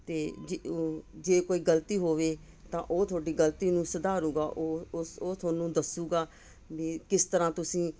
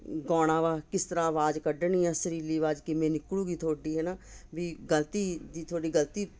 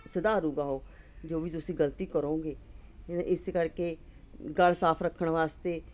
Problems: none marked